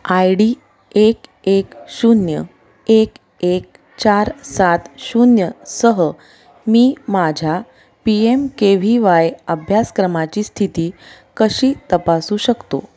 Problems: constant background noise, background conversations at intervals